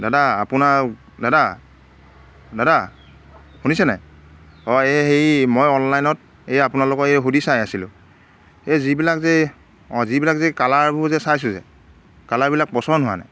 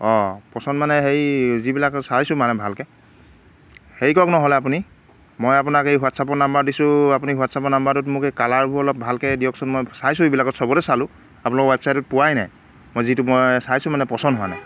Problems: background sounds at intervals